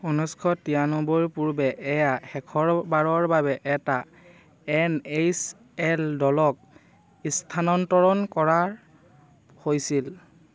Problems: none marked